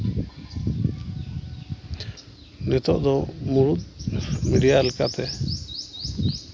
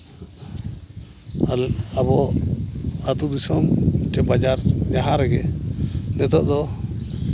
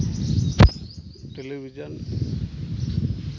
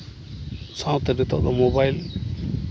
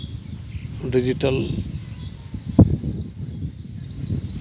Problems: none marked